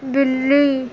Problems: constant background noise